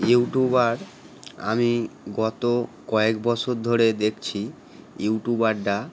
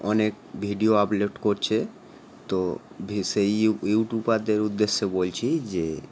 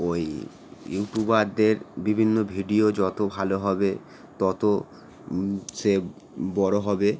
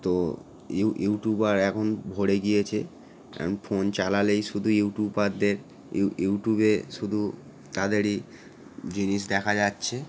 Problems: none marked